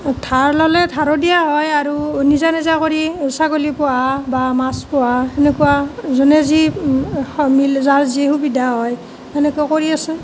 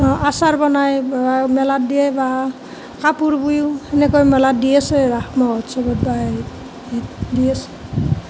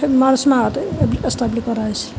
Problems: constant background noise